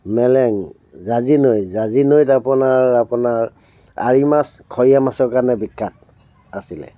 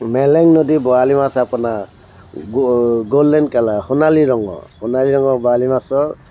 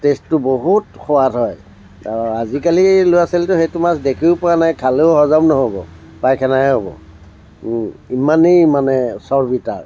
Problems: constant background noise